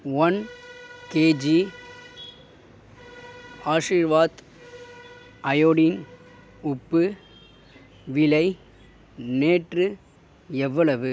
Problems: none marked